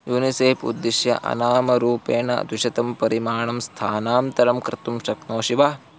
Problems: constant background noise